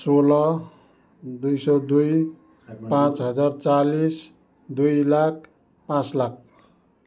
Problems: background sounds at intervals, background conversations at intervals